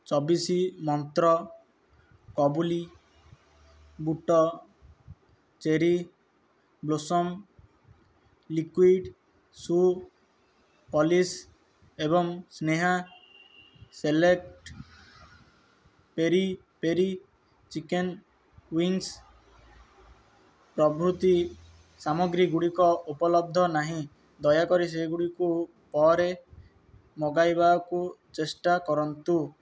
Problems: none marked